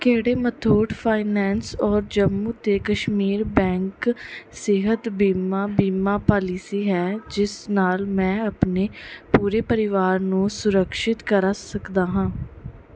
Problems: background sounds at intervals